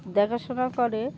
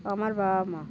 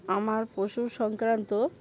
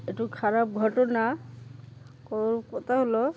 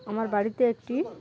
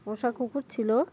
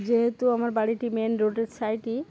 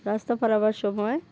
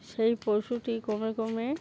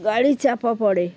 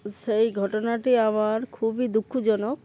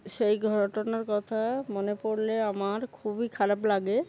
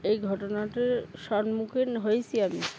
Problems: constant background noise, background conversations at intervals